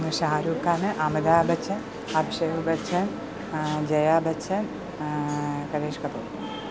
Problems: constant background noise